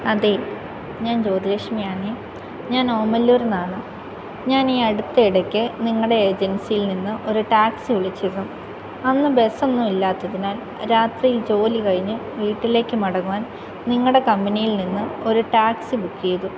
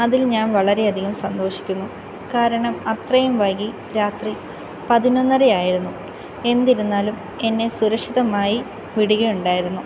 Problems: constant background noise